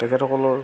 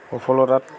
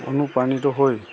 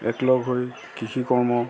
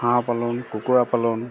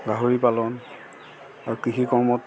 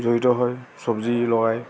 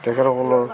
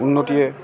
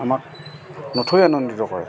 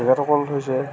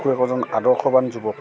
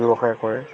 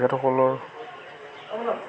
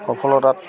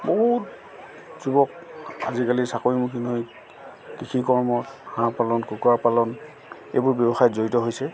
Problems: constant background noise, background conversations at intervals